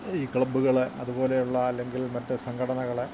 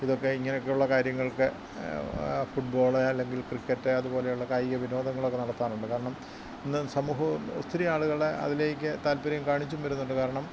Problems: constant background noise, low volume